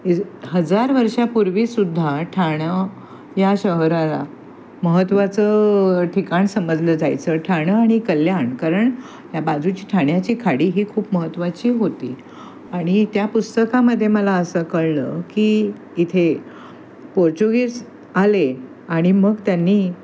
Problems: constant background noise